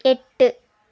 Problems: none marked